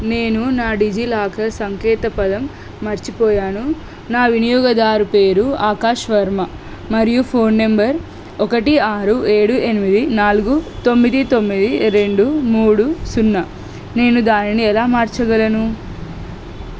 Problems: constant background noise